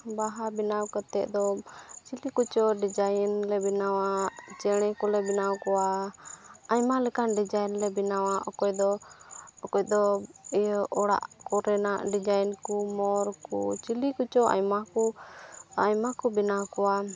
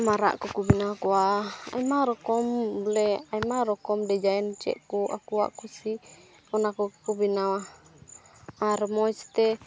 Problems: none marked